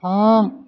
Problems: none marked